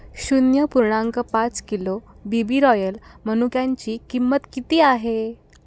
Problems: none marked